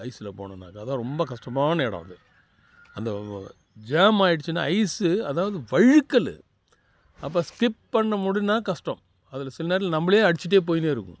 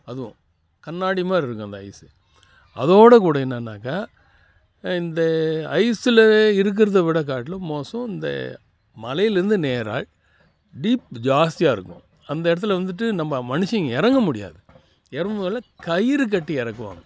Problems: background conversations at intervals